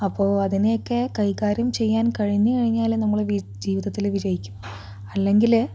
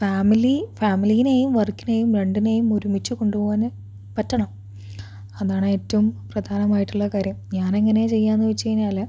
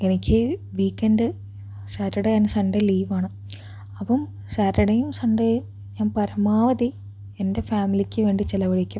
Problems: low volume